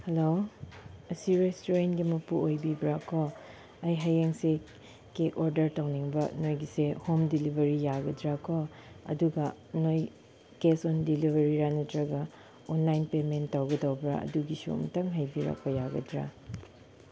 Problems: background sounds at intervals